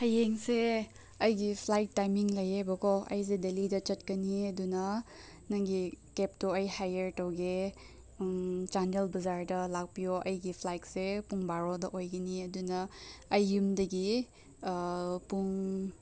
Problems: none marked